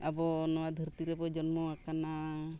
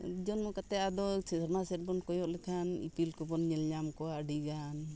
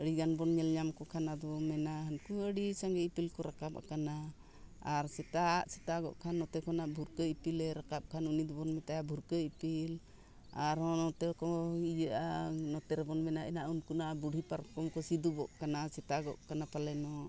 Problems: background conversations at intervals